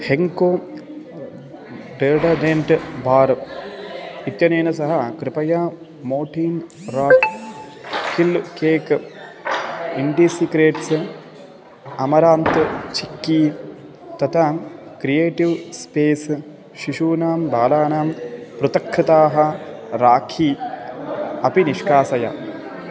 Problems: background sounds at intervals